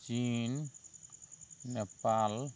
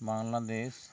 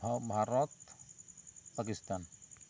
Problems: constant background noise